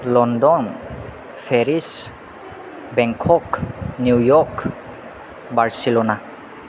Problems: constant background noise